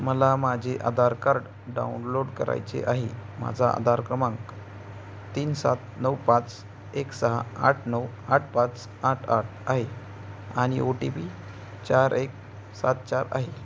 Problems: none marked